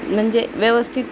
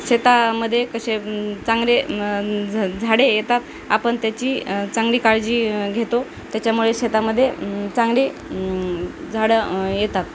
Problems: constant background noise, background conversations at intervals